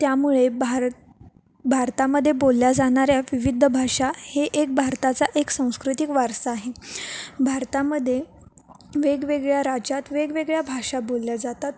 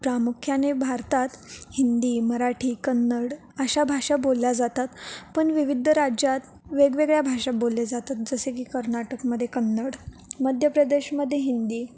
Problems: background sounds at intervals